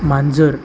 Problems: constant background noise